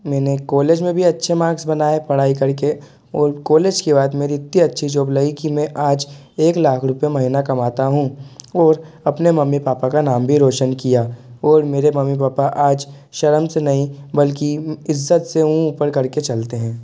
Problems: constant background noise